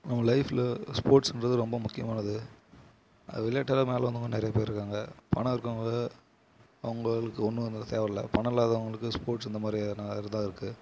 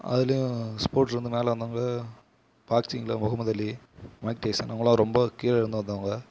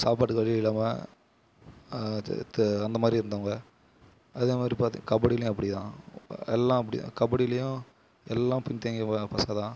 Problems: constant background noise